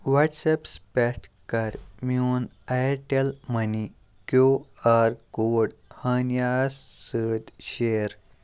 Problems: none marked